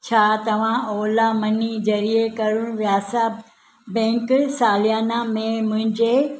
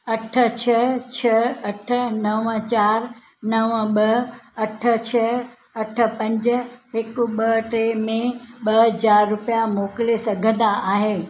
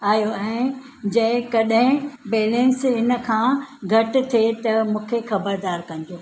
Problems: none marked